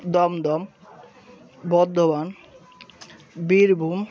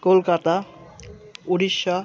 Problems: constant background noise, background conversations at intervals